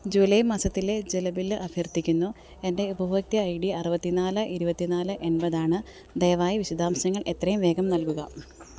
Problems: background sounds at intervals